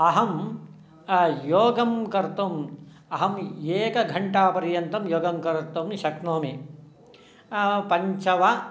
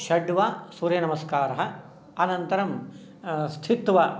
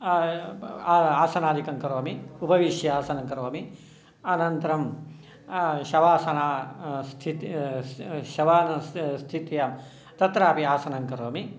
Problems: none marked